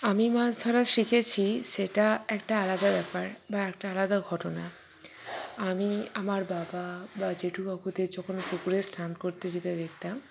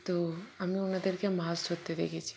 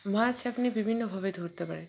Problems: background conversations at intervals